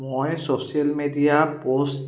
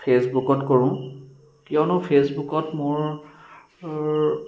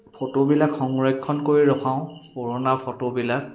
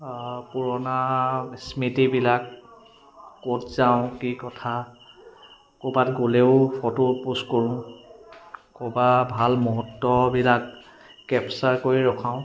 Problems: background sounds at intervals, continuous background conversations